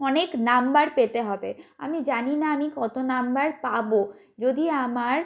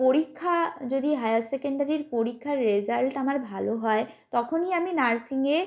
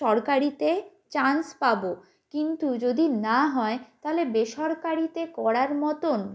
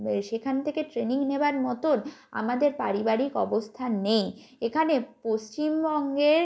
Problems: background sounds at intervals